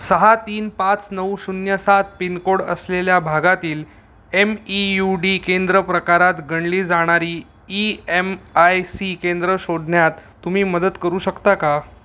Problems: background sounds at intervals